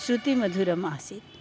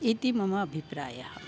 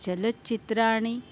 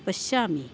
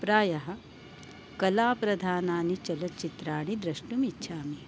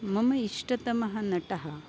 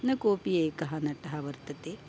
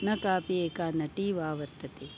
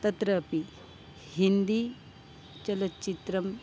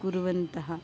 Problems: background sounds at intervals